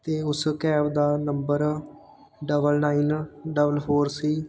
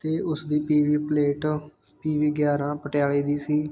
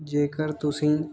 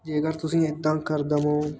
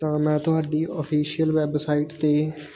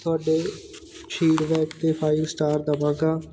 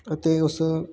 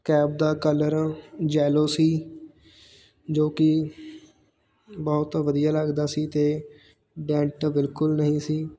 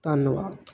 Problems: constant background noise, background conversations at intervals